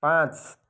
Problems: none marked